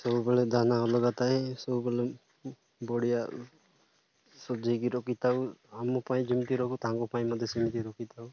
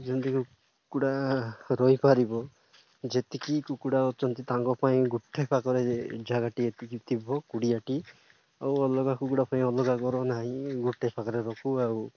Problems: none marked